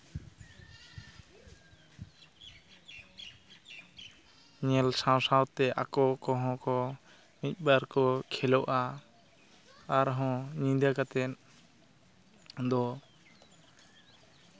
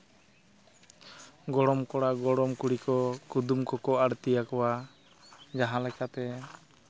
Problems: constant background noise